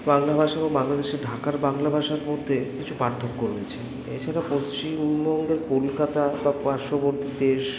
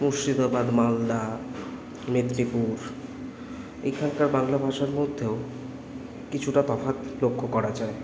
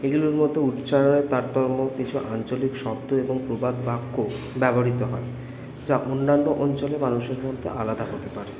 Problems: constant background noise, background conversations at intervals